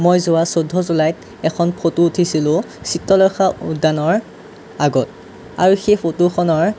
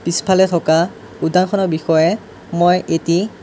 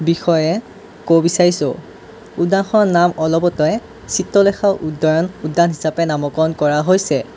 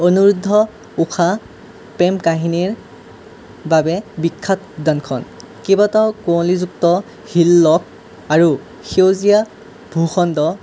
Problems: none marked